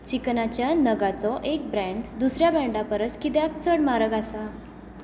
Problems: none marked